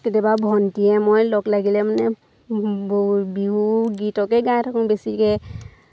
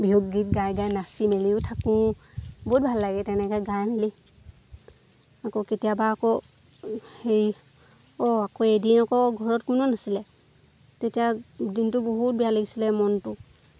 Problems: constant background noise